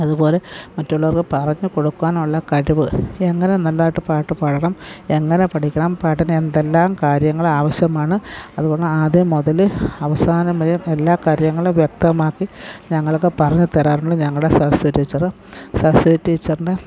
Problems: none marked